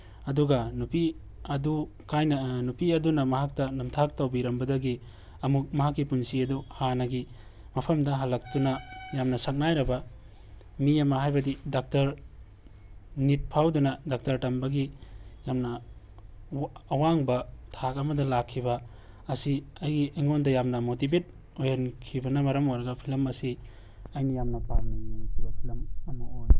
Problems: background sounds at intervals